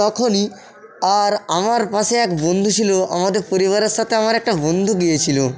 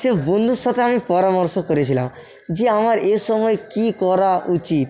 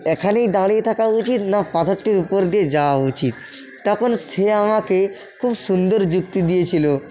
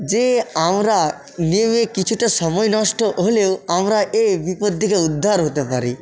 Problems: continuous background conversations, echo